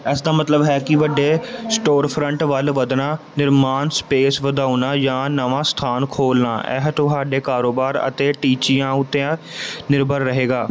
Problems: background conversations at intervals